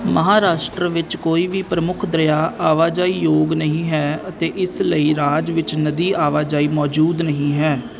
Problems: constant background noise